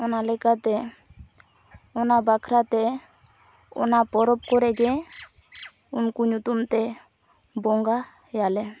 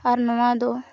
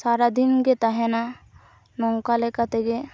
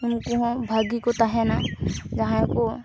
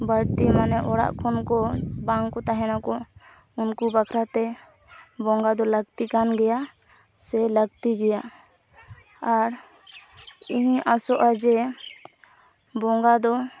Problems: constant background noise, background conversations at intervals